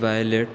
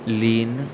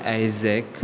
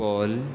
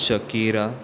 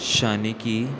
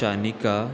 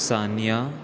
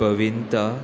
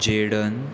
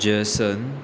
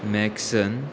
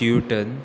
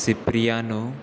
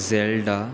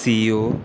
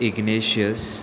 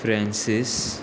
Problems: none marked